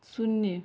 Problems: none marked